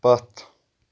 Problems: none marked